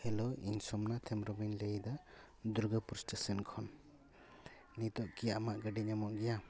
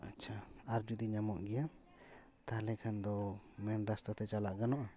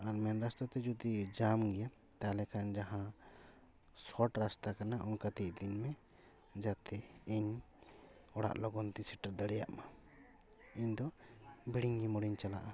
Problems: background sounds at intervals, background conversations at intervals